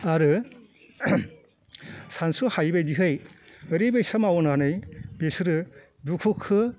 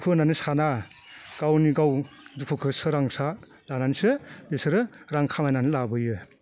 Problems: none marked